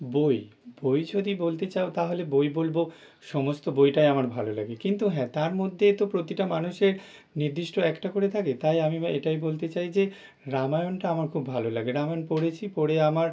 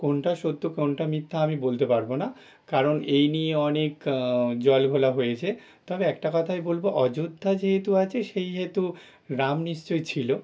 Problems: none marked